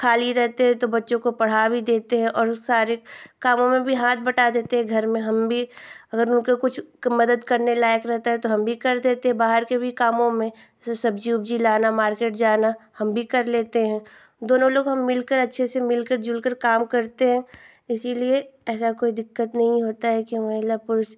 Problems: constant background noise